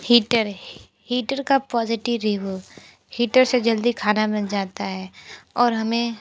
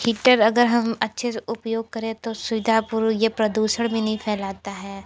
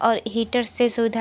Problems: background sounds at intervals